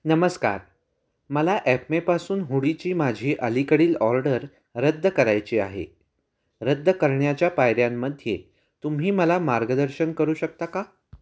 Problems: none marked